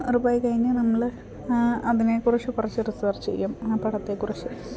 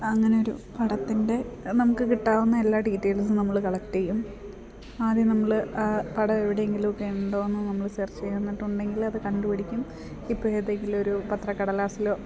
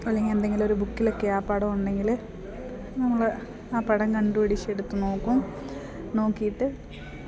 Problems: constant background noise, low volume